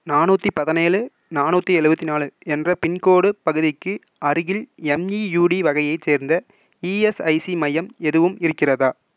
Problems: none marked